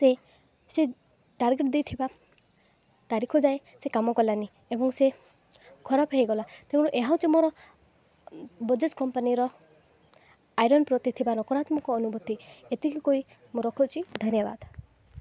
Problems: background sounds at intervals